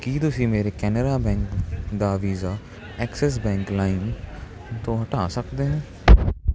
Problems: constant background noise